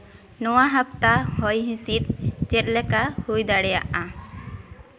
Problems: background sounds at intervals